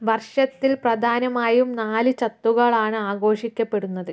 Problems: none marked